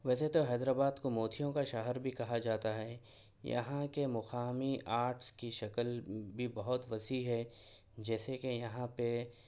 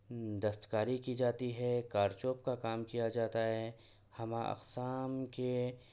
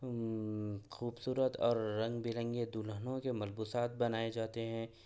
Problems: none marked